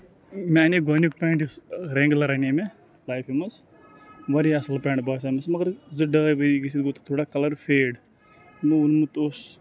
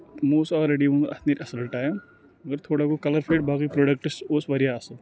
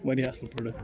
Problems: background sounds at intervals, background conversations at intervals